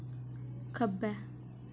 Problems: none marked